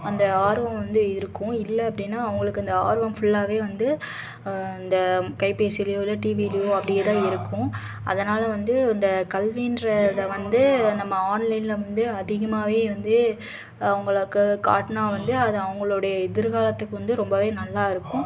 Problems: constant background noise, continuous background conversations